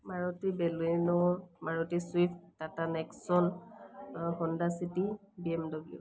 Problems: none marked